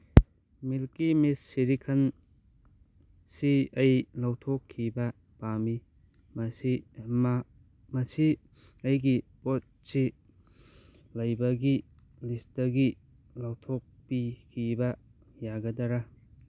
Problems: none marked